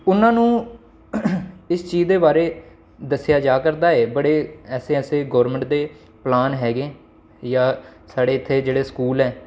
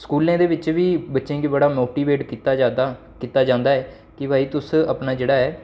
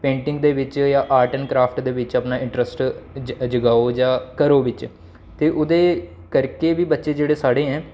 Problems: constant background noise